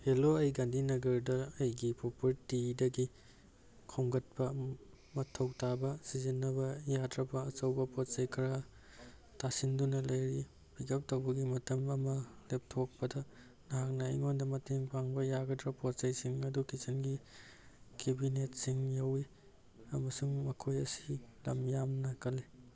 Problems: none marked